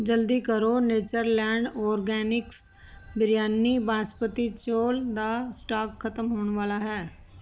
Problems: none marked